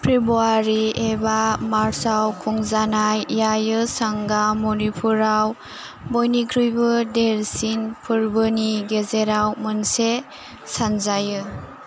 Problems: constant background noise